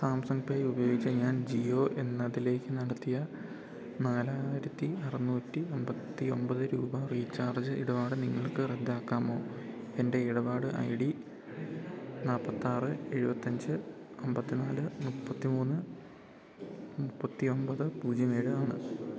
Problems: none marked